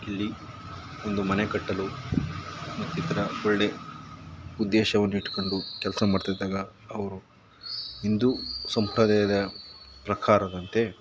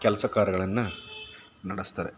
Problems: background sounds at intervals